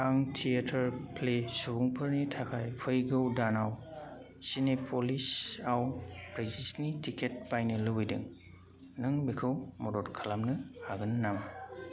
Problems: constant background noise